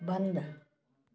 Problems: background sounds at intervals